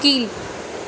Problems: constant background noise